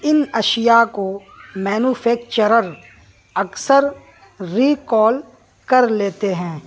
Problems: background sounds at intervals, background conversations at intervals